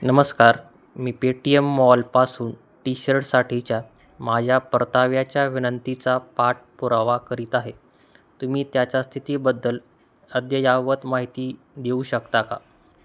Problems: constant background noise